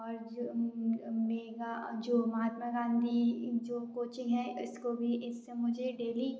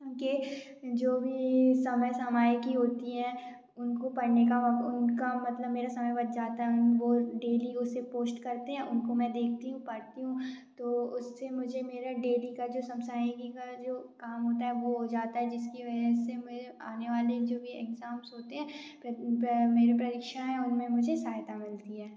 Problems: background sounds at intervals, background conversations at intervals